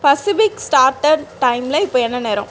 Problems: background sounds at intervals